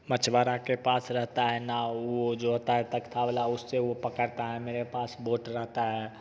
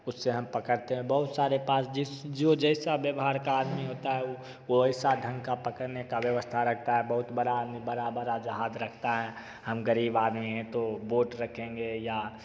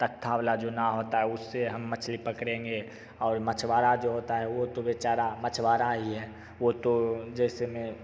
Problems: none marked